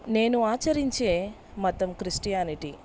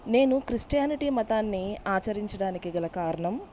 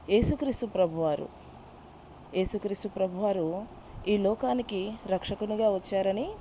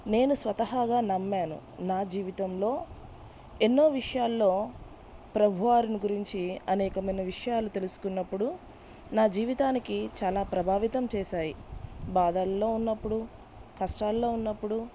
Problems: background sounds at intervals